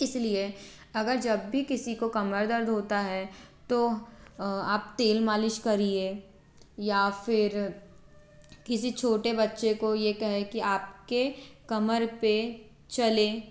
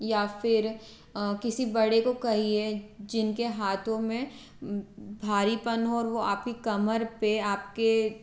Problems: constant background noise